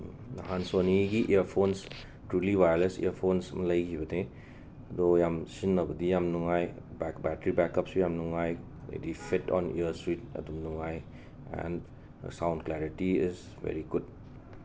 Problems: background sounds at intervals